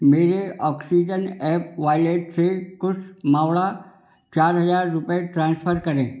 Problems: background sounds at intervals